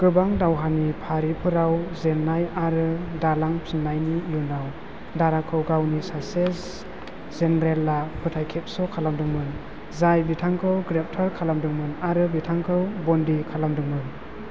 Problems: constant background noise